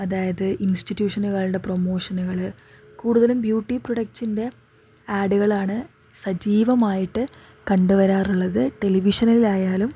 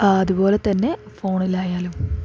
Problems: none marked